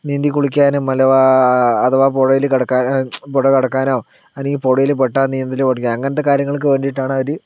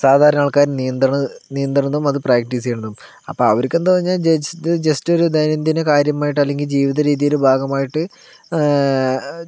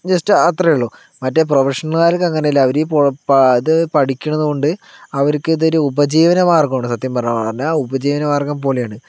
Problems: none marked